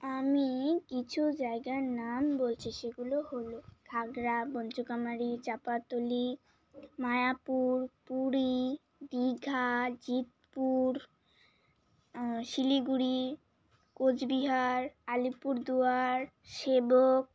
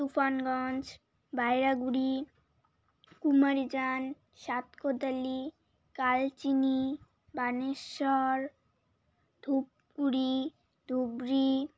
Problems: constant background noise, background conversations at intervals